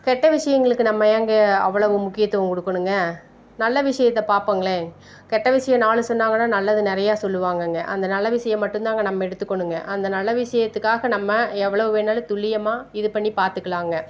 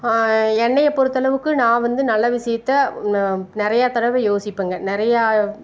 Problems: none marked